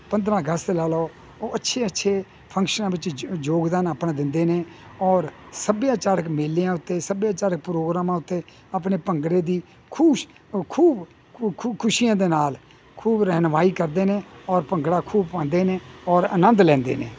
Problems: none marked